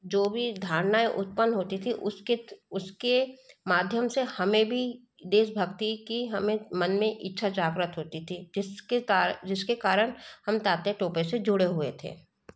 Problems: none marked